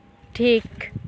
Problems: constant background noise